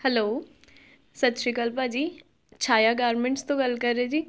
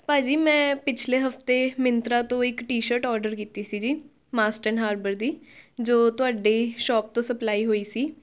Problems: background sounds at intervals